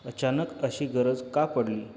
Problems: constant background noise